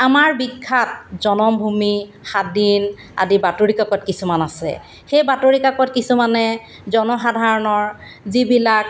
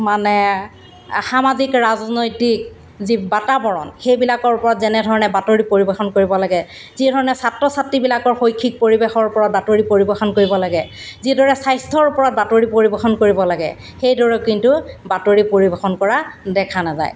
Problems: background sounds at intervals